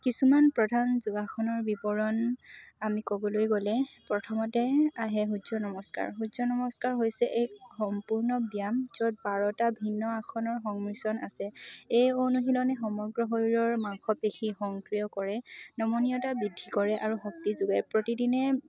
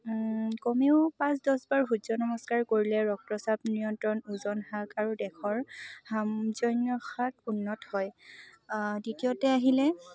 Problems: none marked